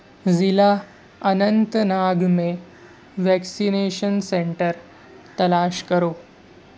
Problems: constant background noise